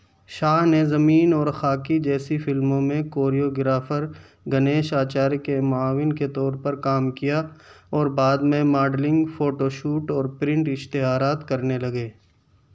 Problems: background sounds at intervals